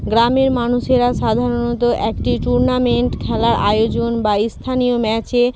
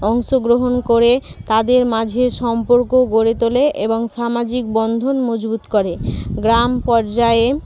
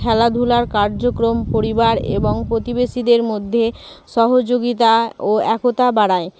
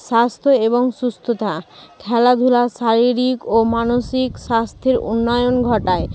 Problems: none marked